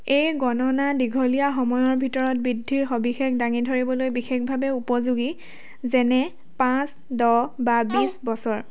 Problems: background sounds at intervals, background conversations at intervals